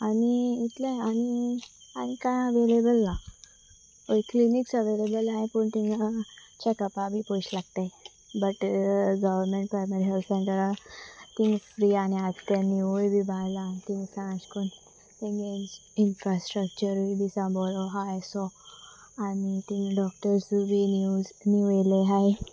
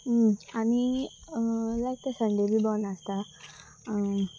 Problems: constant background noise